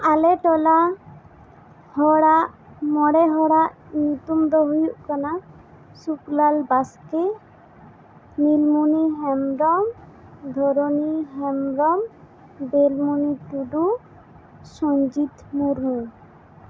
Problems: constant background noise